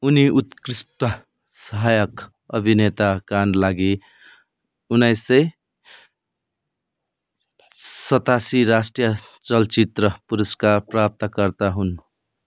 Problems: constant background noise, background conversations at intervals